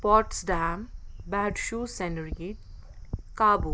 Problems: none marked